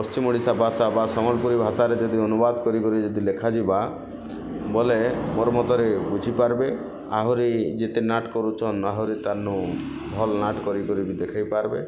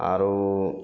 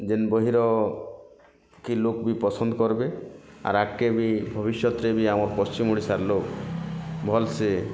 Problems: constant background noise